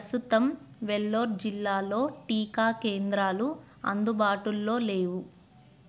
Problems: constant background noise